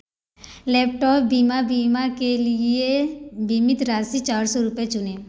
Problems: background sounds at intervals